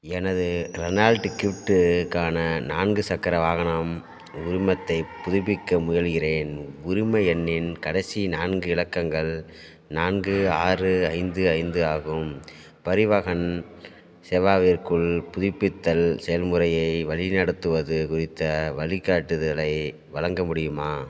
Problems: background sounds at intervals